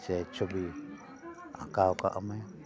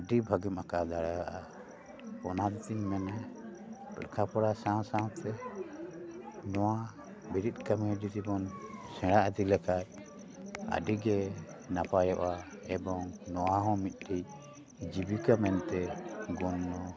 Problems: continuous background conversations